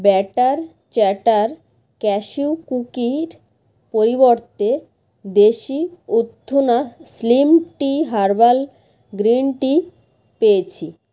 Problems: background sounds at intervals